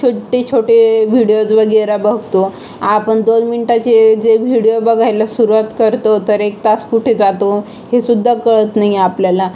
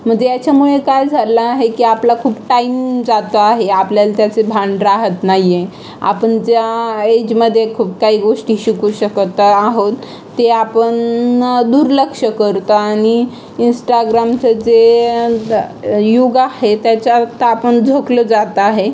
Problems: constant background noise, continuous background conversations